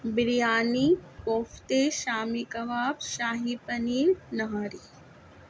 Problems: constant background noise